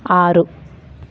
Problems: constant background noise